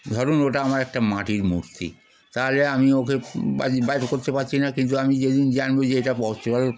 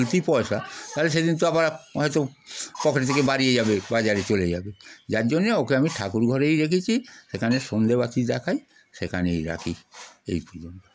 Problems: none marked